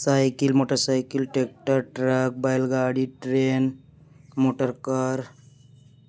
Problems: background sounds at intervals